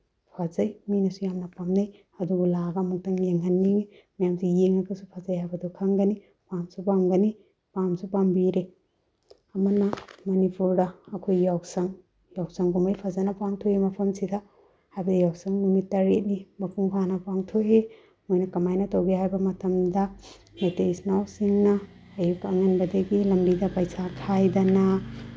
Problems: low volume